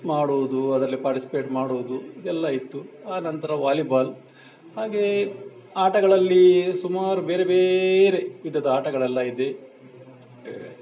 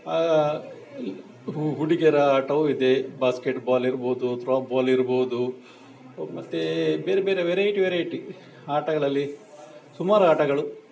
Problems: background sounds at intervals